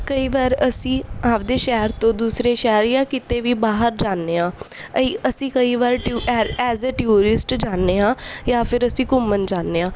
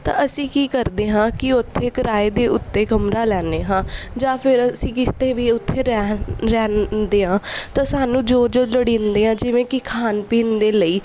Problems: none marked